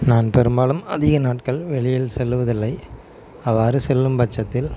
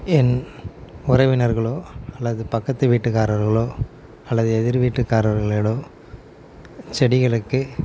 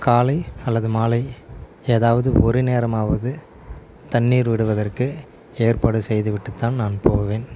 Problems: none marked